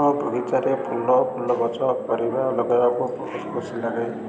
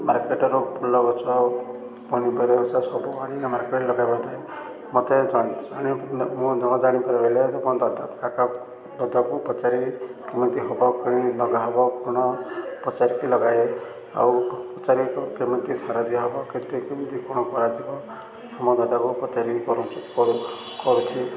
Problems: constant background noise